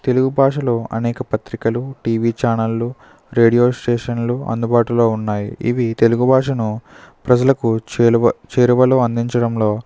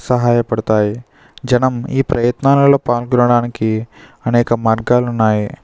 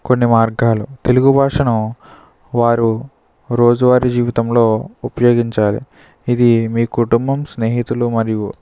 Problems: none marked